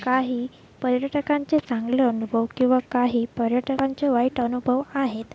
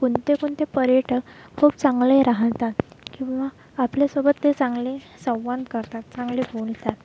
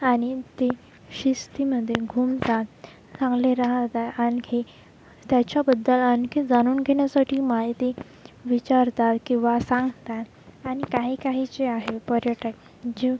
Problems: constant background noise